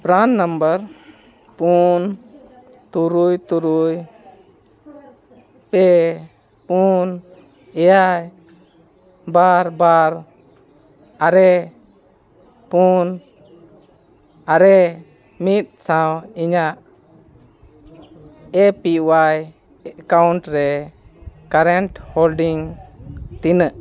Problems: constant background noise, background conversations at intervals